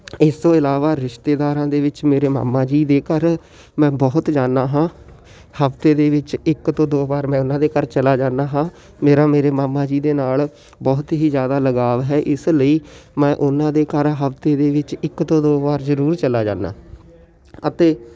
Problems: constant background noise, continuous background conversations